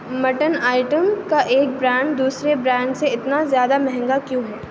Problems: none marked